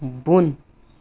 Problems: background sounds at intervals